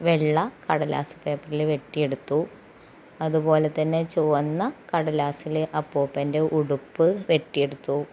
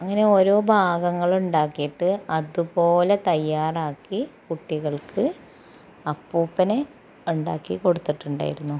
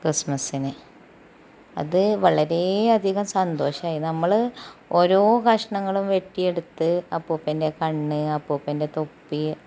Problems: constant background noise, low volume